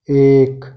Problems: none marked